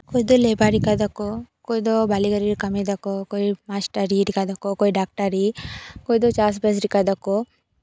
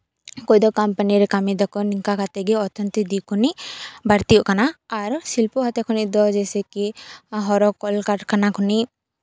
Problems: background sounds at intervals